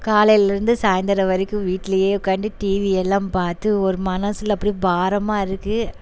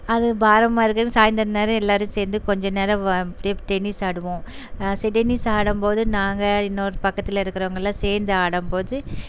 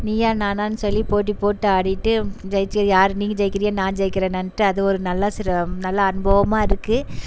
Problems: background sounds at intervals